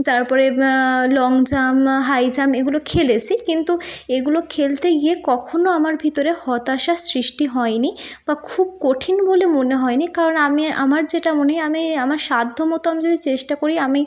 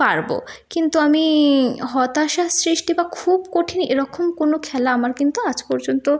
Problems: none marked